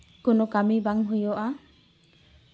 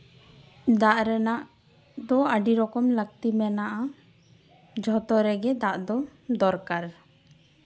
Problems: background sounds at intervals